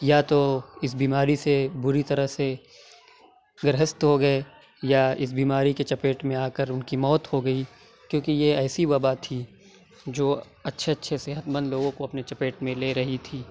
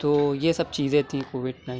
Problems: none marked